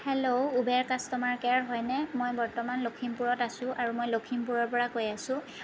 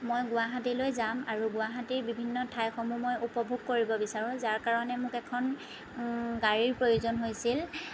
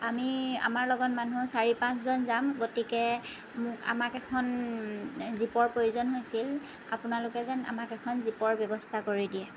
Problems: none marked